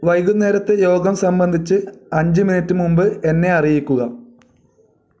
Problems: none marked